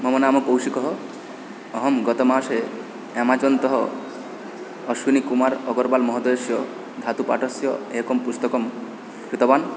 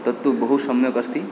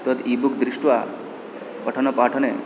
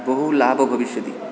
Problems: constant background noise